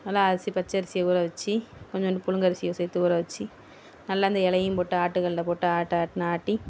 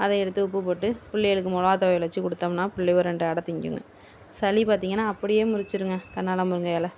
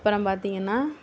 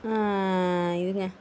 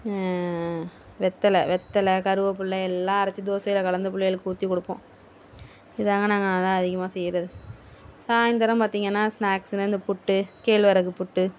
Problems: none marked